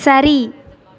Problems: background conversations at intervals